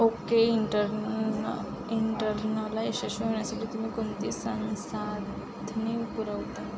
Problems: background sounds at intervals